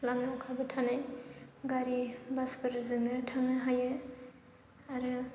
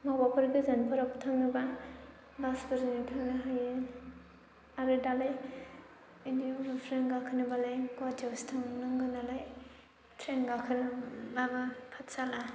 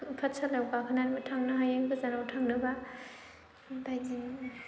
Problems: low volume